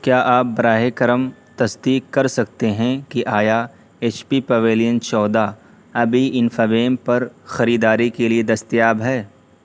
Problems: constant background noise